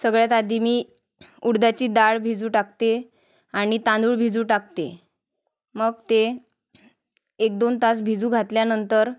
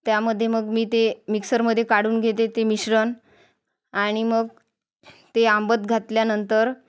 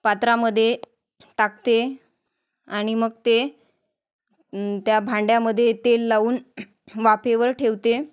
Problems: background sounds at intervals, background conversations at intervals